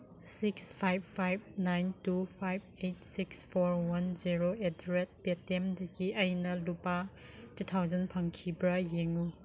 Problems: background sounds at intervals